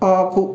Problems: none marked